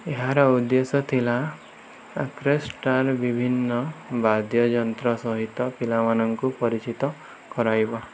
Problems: none marked